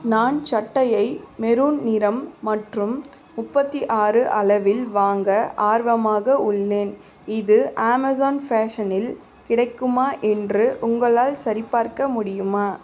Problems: constant background noise, background conversations at intervals